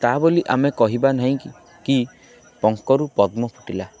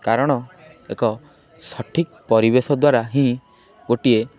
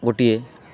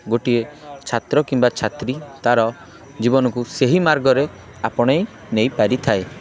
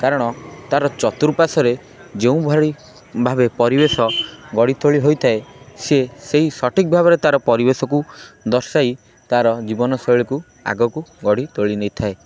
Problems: constant background noise, continuous background conversations